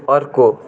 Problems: background sounds at intervals